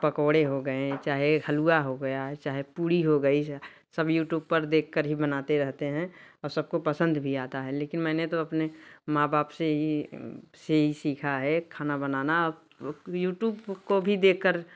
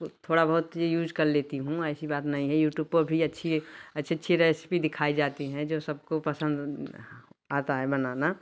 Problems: none marked